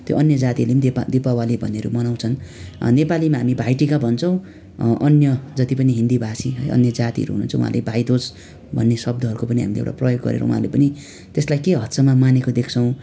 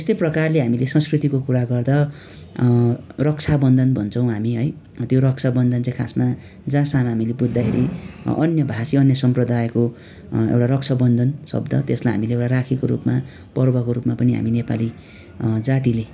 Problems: constant background noise